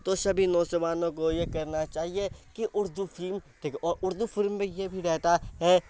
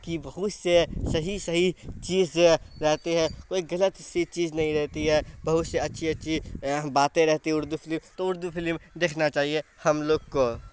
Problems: constant background noise